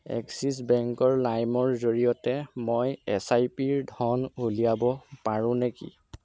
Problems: none marked